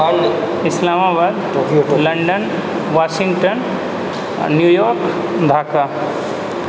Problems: background sounds at intervals